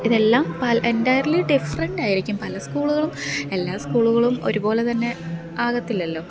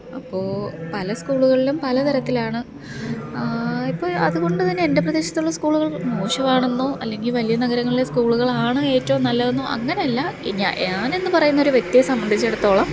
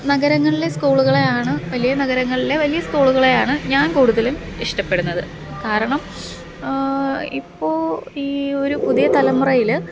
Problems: background sounds at intervals